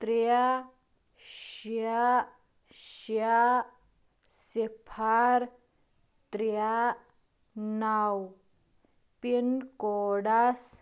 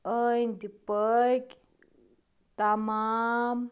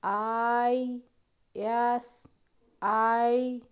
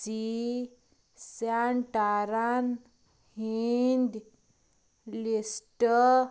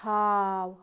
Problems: constant background noise